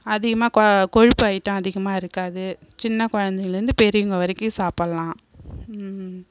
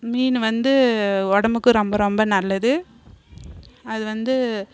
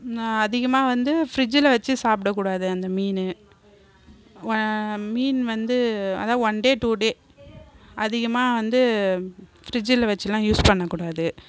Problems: none marked